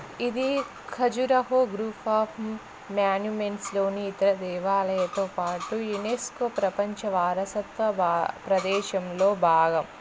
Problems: continuous background conversations